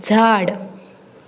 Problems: background sounds at intervals